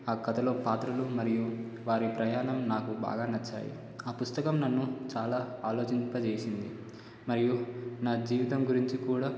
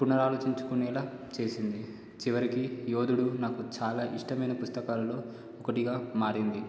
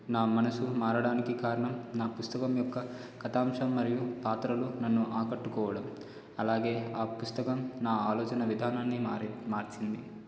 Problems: low volume